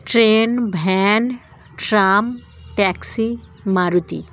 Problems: constant background noise